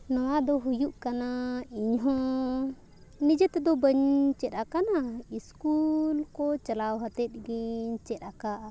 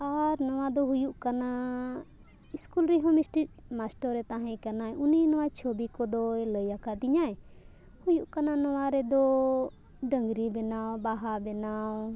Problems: none marked